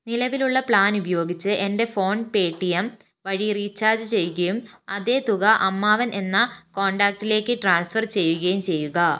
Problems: none marked